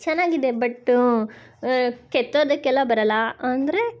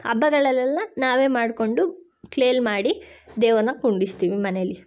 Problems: none marked